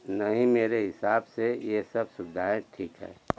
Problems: none marked